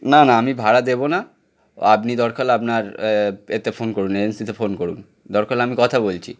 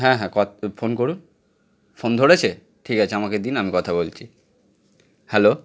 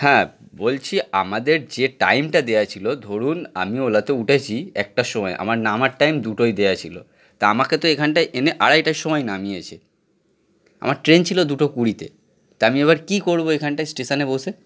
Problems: none marked